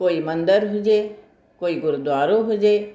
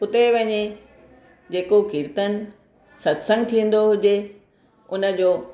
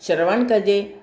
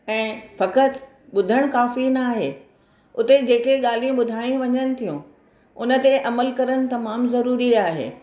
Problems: none marked